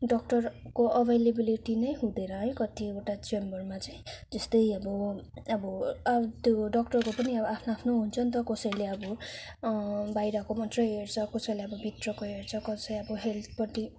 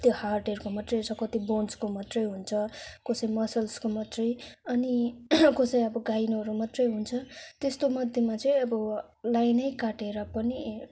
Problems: background sounds at intervals